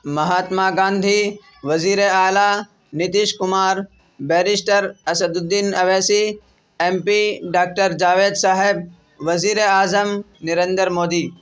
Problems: none marked